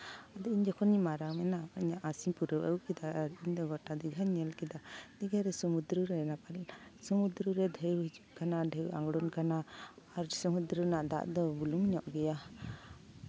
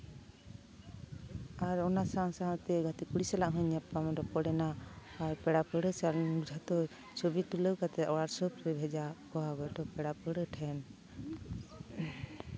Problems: constant background noise, continuous background conversations